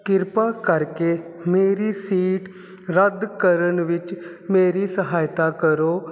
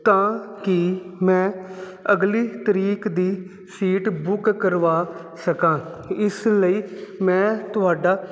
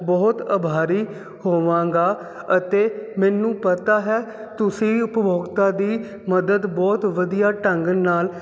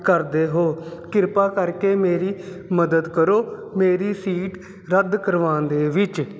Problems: constant background noise